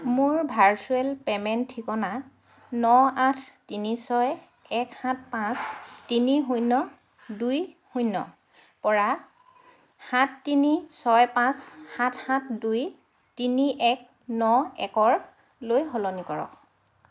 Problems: constant background noise